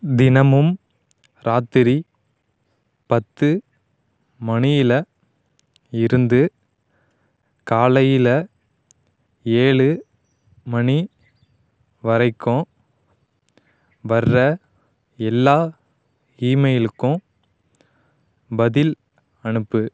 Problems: none marked